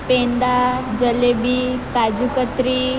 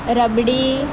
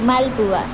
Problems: constant background noise